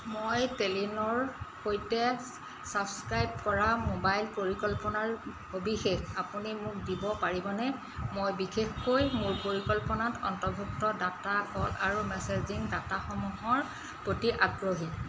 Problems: constant background noise